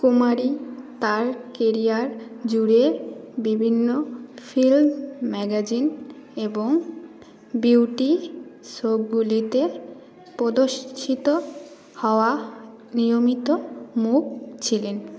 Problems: constant background noise